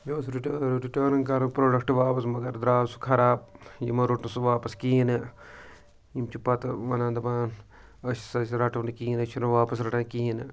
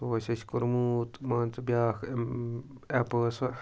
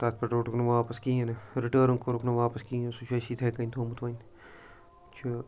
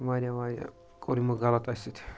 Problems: background sounds at intervals, background conversations at intervals